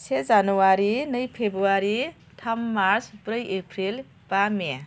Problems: constant background noise